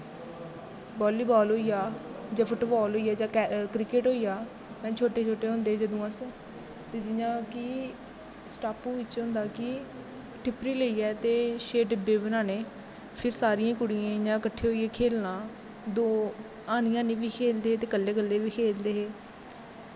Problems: constant background noise, background conversations at intervals, echo